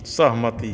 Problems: none marked